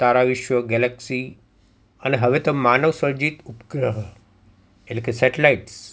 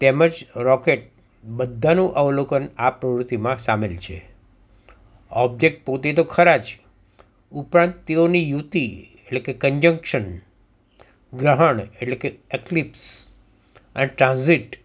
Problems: none marked